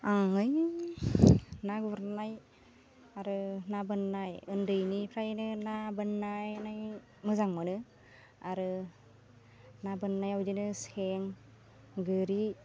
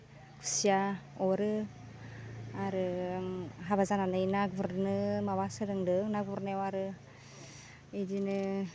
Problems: none marked